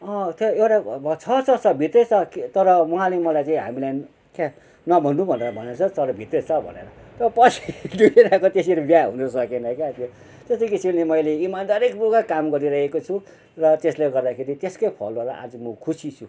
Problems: none marked